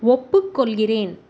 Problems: none marked